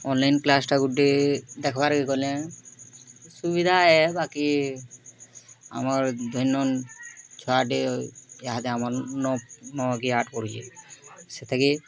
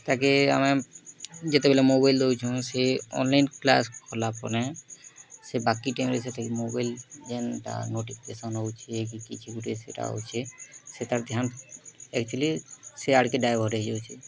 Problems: constant background noise, continuous background conversations